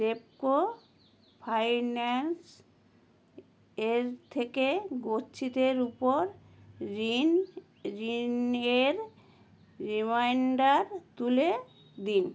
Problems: constant background noise